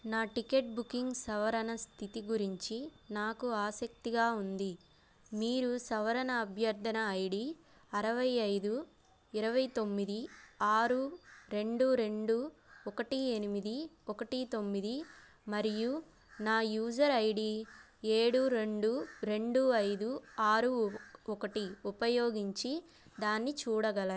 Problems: background sounds at intervals